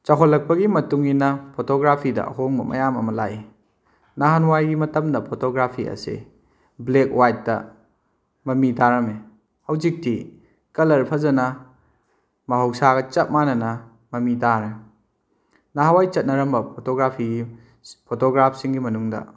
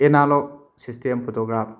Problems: none marked